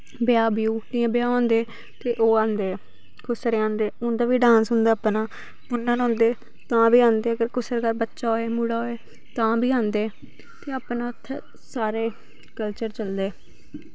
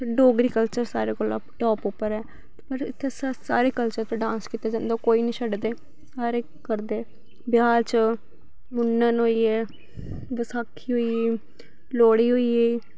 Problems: background sounds at intervals